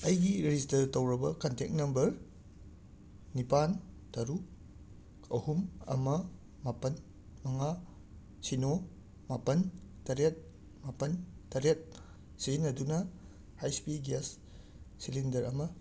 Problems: none marked